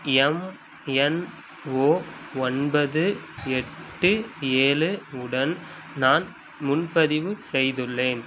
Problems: constant background noise